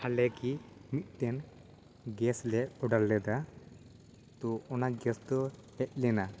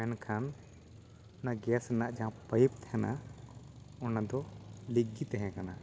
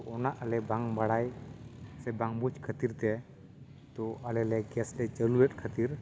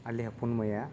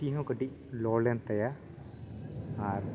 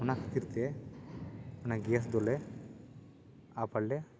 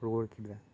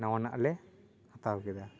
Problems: background sounds at intervals, background conversations at intervals